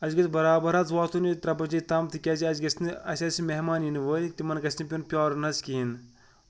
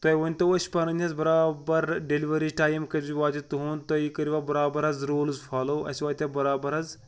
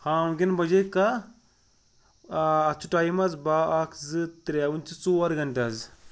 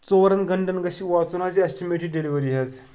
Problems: none marked